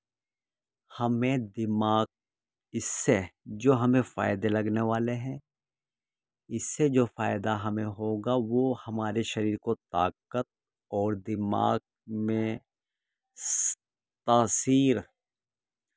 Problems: constant background noise